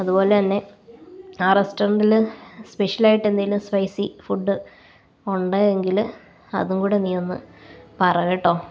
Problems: none marked